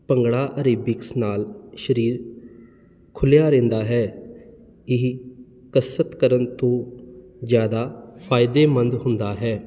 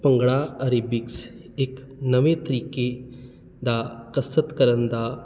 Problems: none marked